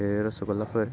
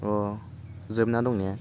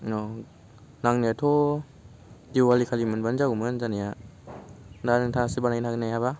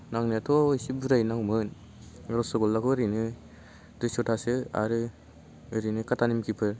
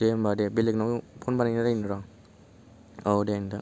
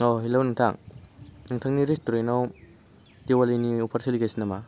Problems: none marked